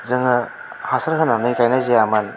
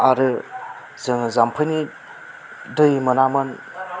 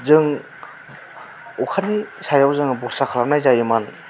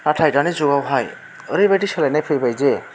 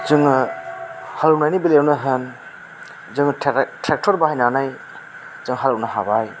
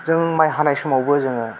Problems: constant background noise